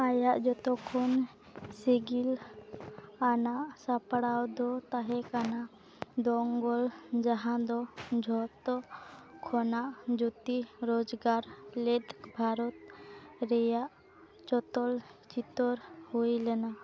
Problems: constant background noise